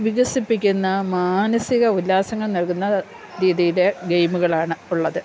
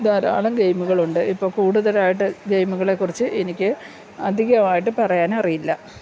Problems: low volume